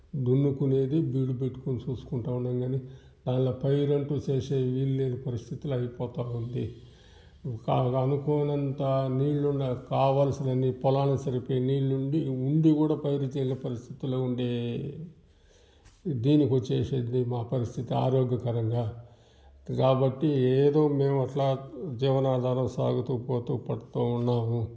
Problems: background sounds at intervals, background conversations at intervals